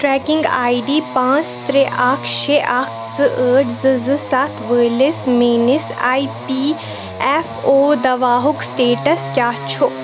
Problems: constant background noise